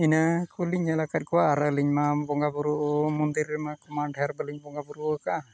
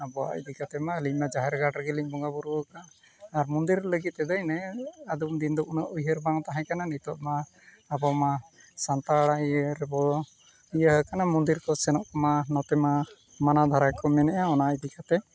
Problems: background sounds at intervals, continuous background conversations